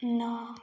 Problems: background sounds at intervals